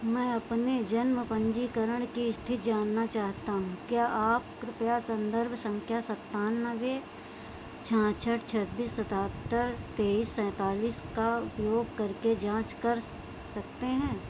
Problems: constant background noise